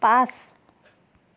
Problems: constant background noise